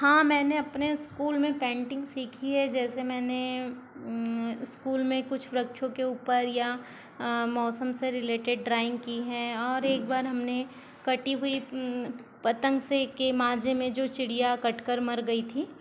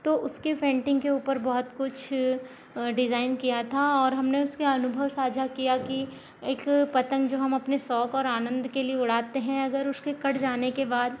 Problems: constant background noise